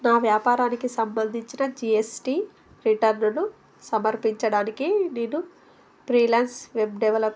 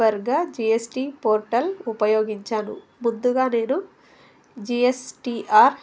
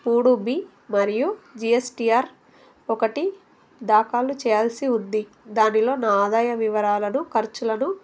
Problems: none marked